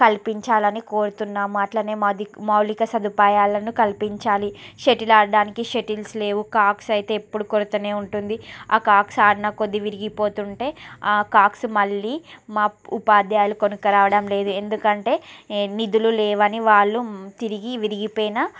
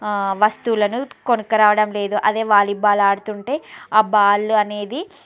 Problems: background sounds at intervals